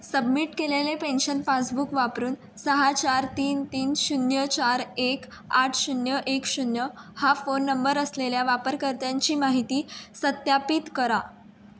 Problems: background sounds at intervals